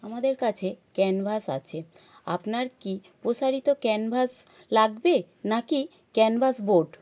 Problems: none marked